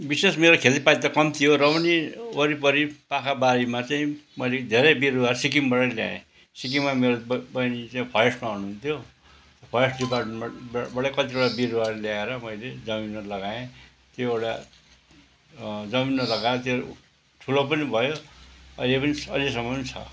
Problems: constant background noise